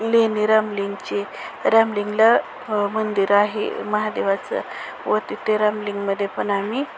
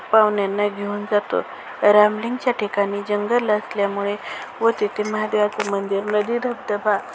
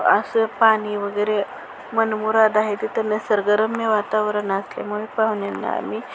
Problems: constant background noise